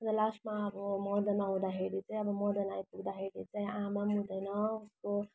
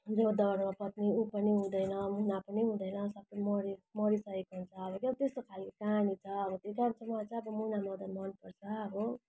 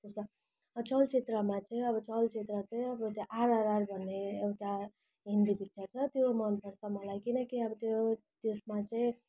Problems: background sounds at intervals